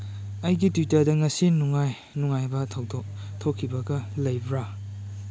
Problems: background sounds at intervals